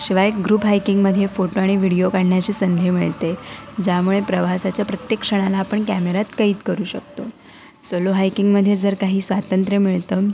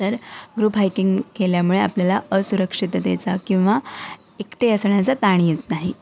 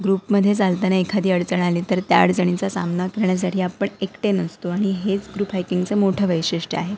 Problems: none marked